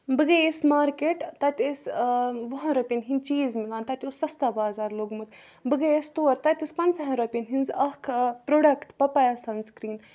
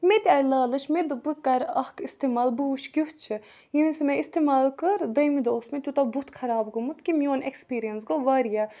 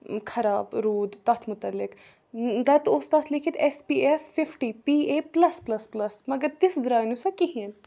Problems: background sounds at intervals